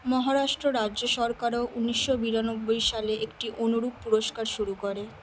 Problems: constant background noise